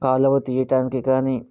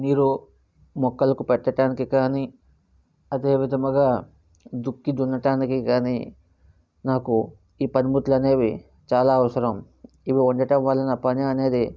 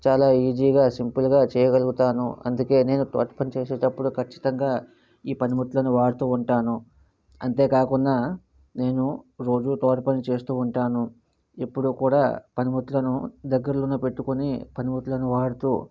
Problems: none marked